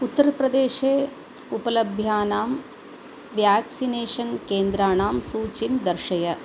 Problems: constant background noise